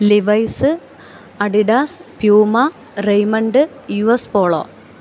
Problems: constant background noise